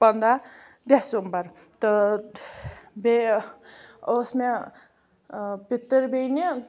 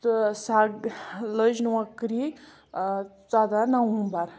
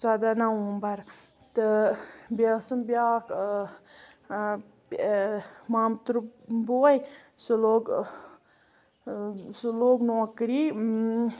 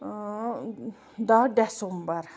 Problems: background sounds at intervals